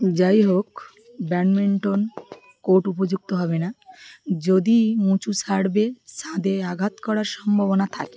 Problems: constant background noise, background conversations at intervals